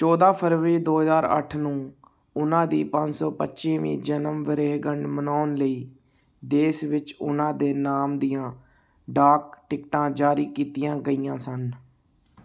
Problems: none marked